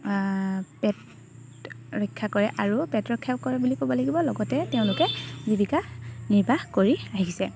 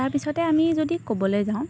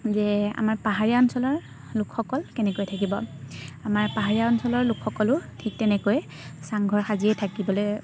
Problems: constant background noise